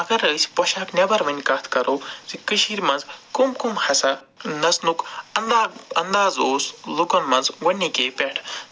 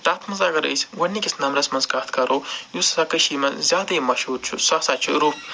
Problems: none marked